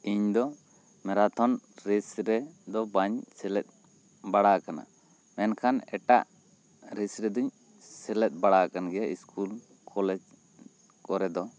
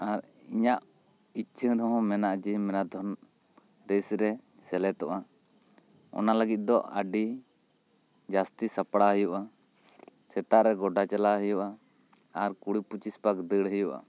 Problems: constant background noise